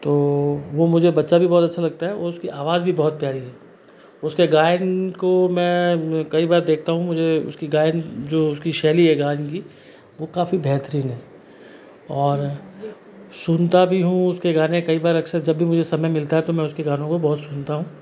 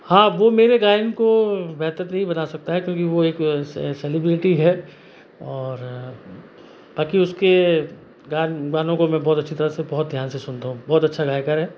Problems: constant background noise